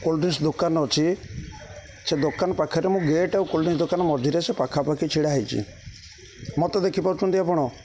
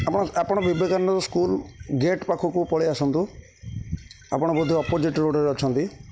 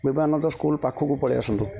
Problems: constant background noise